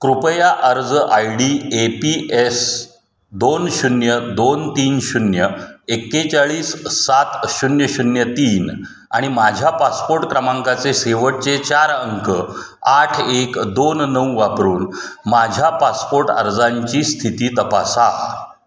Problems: none marked